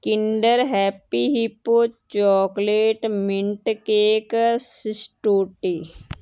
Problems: constant background noise